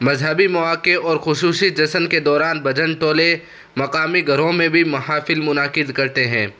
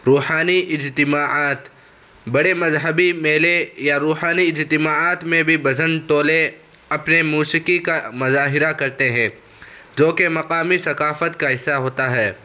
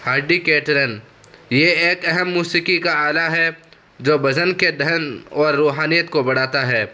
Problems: constant background noise